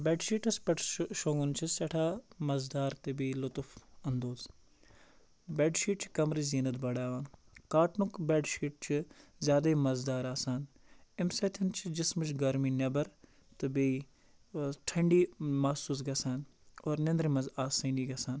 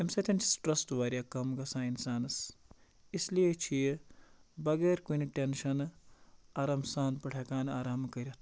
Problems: constant background noise